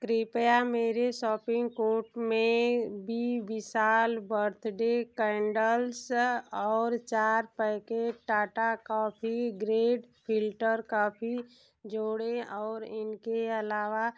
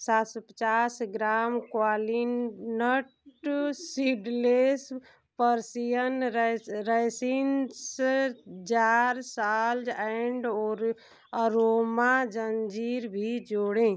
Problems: constant background noise